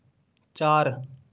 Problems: background sounds at intervals